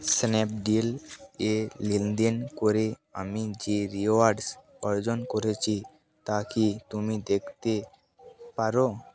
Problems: background sounds at intervals, background conversations at intervals